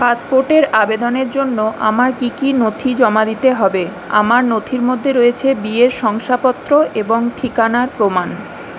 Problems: constant background noise